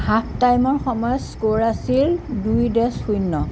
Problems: constant background noise